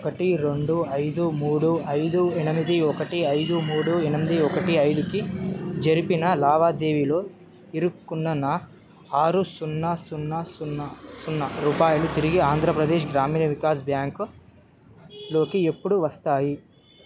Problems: background sounds at intervals